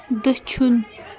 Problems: continuous background conversations